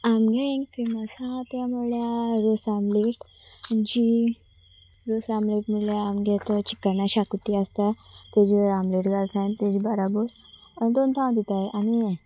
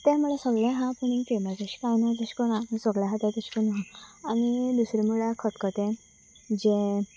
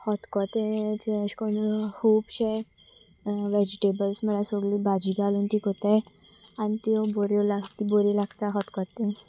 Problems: constant background noise